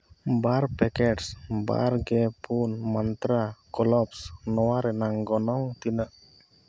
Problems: none marked